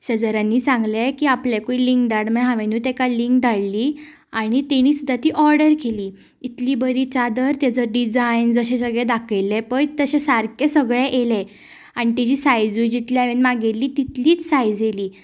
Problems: background sounds at intervals, background conversations at intervals